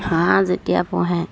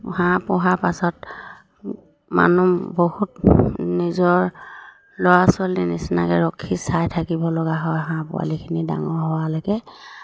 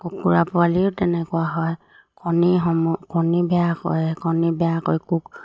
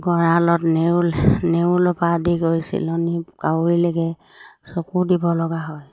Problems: low volume